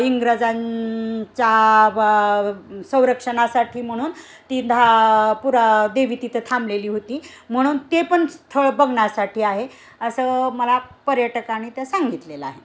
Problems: constant background noise, background conversations at intervals